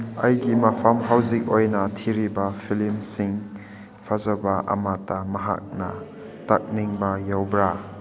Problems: constant background noise